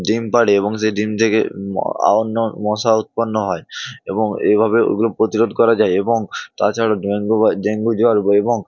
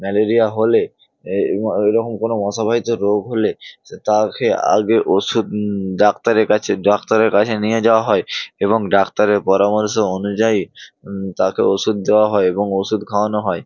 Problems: background sounds at intervals